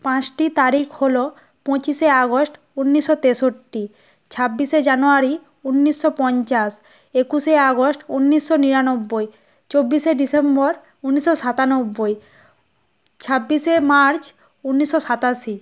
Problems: none marked